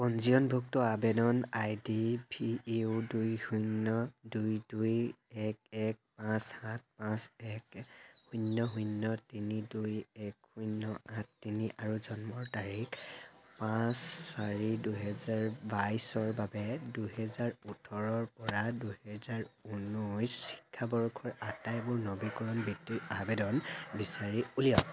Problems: constant background noise